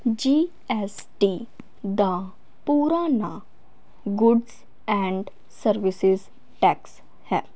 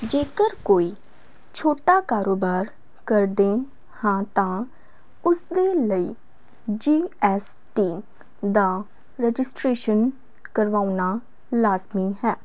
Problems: none marked